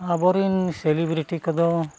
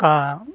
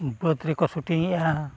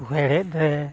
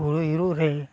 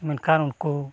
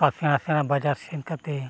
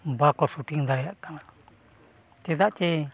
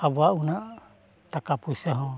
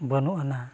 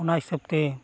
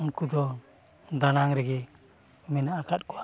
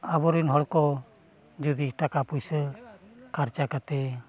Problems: none marked